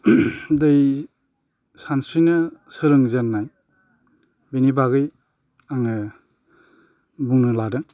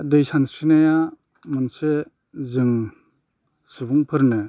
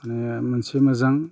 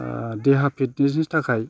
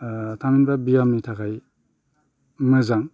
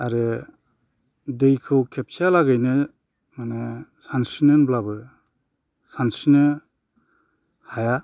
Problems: constant background noise